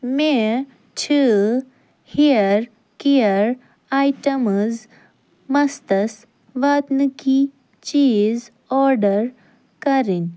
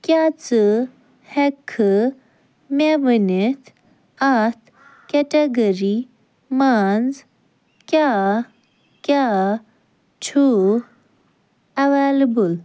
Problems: none marked